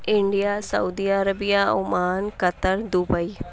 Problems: none marked